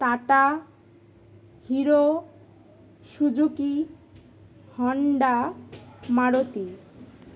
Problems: constant background noise, background conversations at intervals